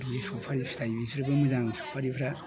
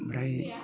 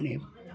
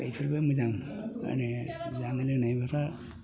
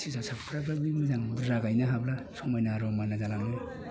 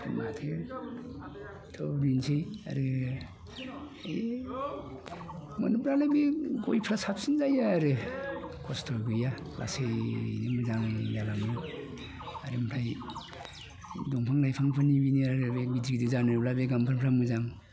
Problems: constant background noise